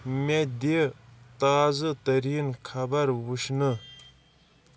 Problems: background sounds at intervals